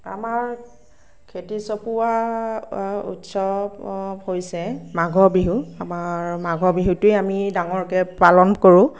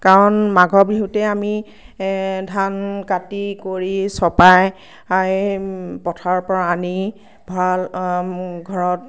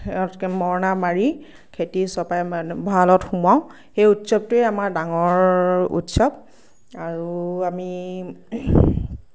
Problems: none marked